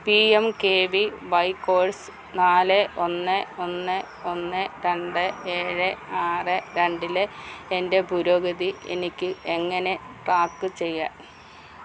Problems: background sounds at intervals